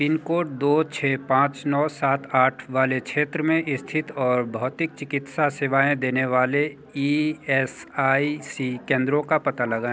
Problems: constant background noise